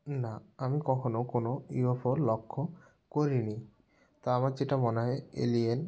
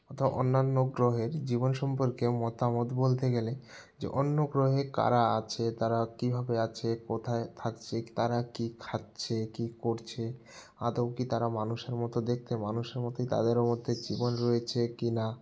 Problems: background sounds at intervals